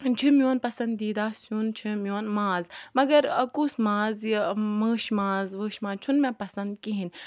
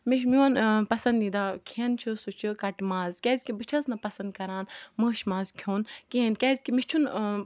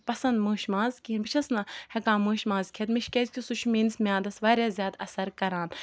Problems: background sounds at intervals